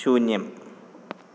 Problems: none marked